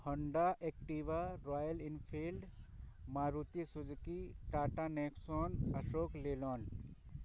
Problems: none marked